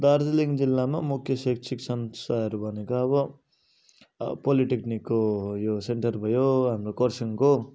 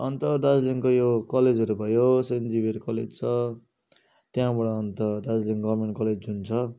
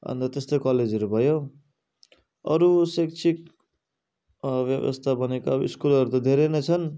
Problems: none marked